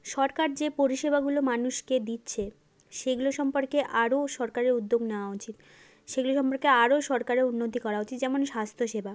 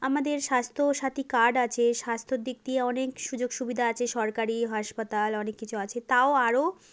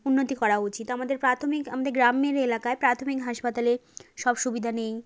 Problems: background sounds at intervals